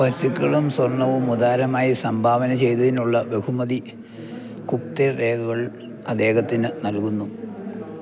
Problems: none marked